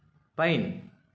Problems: background sounds at intervals